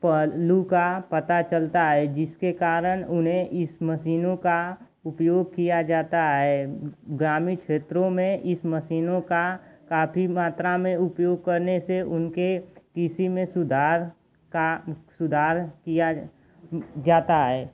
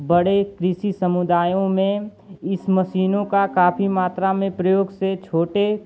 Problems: constant background noise